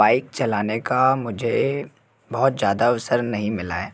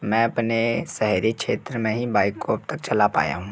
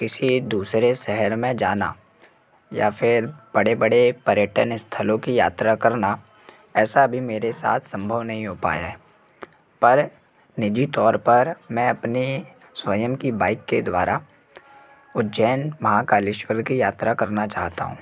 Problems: background sounds at intervals